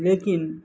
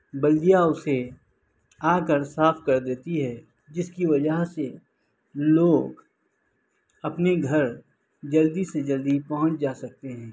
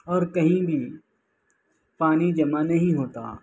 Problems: constant background noise, low volume